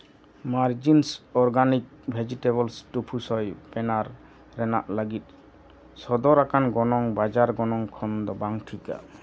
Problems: none marked